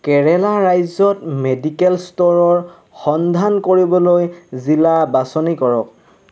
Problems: constant background noise